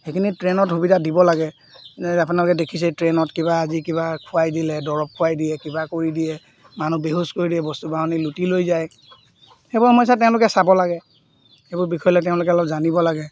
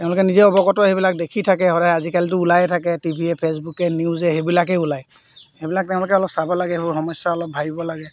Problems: none marked